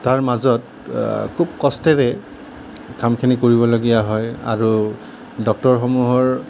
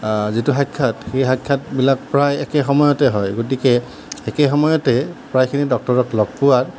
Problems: none marked